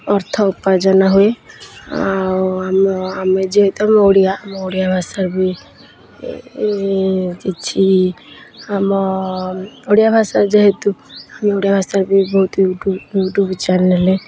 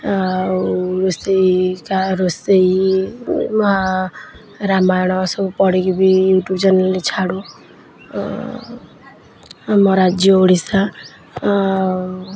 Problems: constant background noise